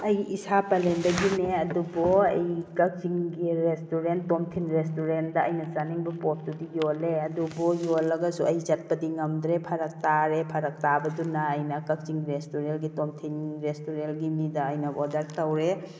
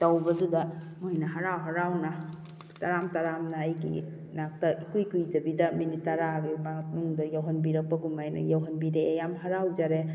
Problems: none marked